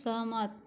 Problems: low volume